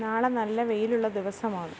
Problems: none marked